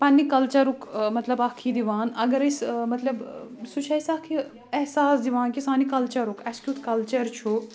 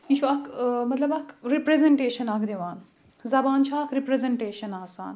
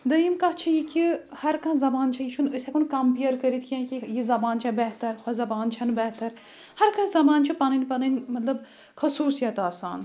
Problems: none marked